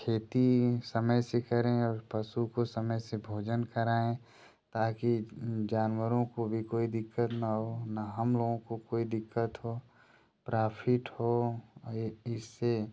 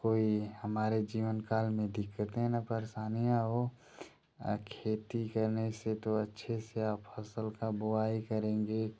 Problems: constant background noise